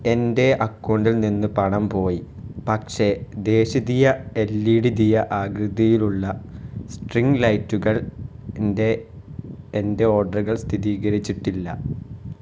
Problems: low volume